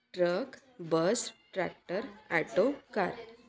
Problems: background sounds at intervals, continuous background conversations